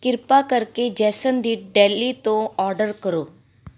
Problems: none marked